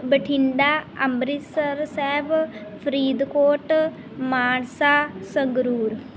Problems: background sounds at intervals